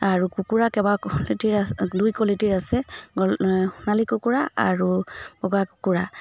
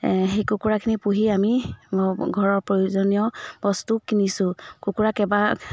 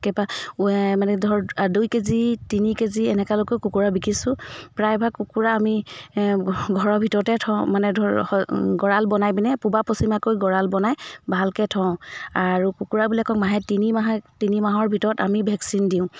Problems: background sounds at intervals